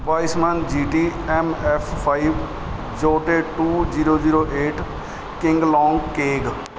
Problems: none marked